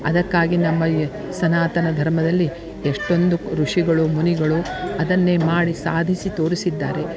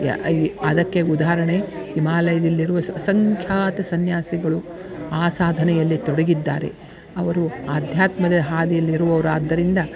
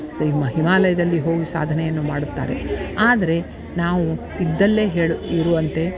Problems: background sounds at intervals